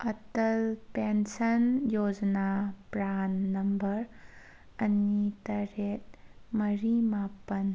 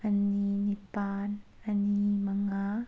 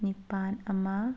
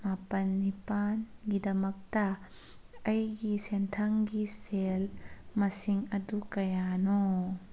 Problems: none marked